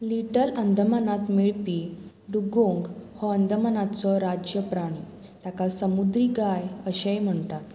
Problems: constant background noise